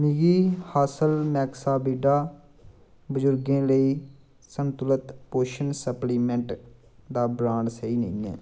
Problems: background sounds at intervals